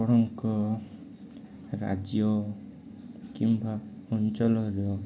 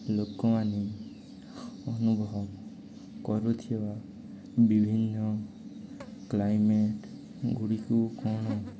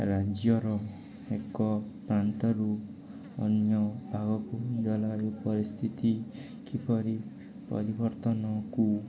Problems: constant background noise, continuous background conversations